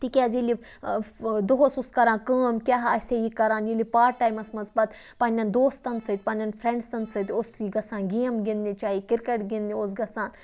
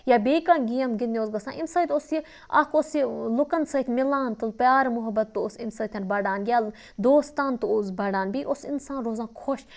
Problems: none marked